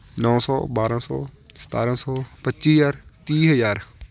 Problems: none marked